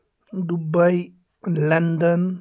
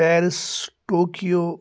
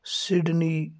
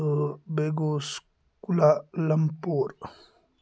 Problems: background sounds at intervals